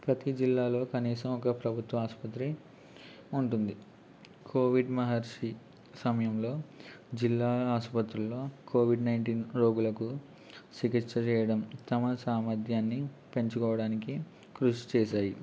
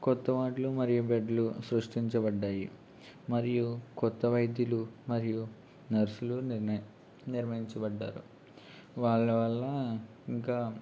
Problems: constant background noise, low volume